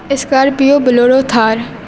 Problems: constant background noise, background conversations at intervals